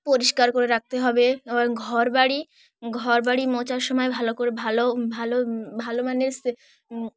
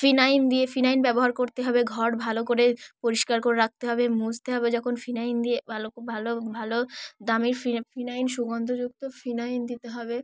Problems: background sounds at intervals